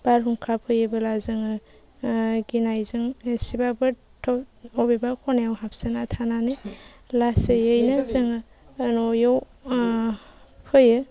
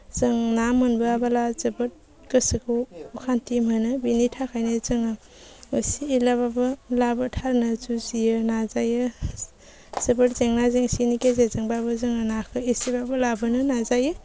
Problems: low volume